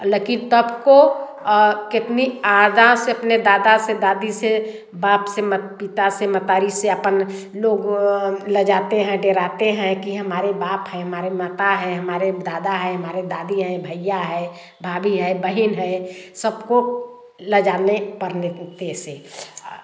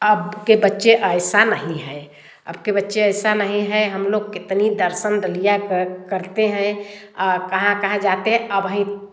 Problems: background sounds at intervals, background conversations at intervals, echo